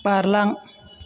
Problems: constant background noise